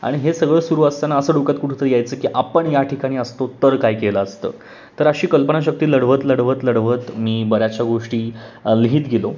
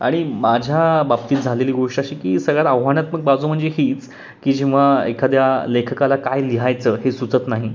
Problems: constant background noise